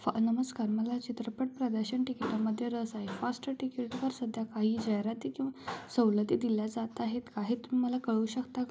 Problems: low volume